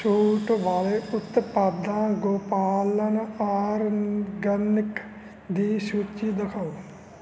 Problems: constant background noise